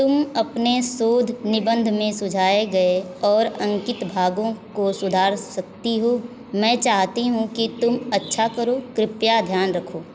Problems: constant background noise